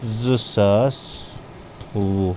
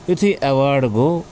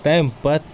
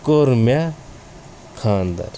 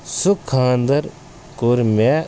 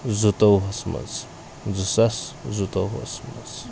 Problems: constant background noise